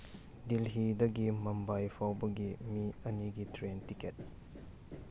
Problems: constant background noise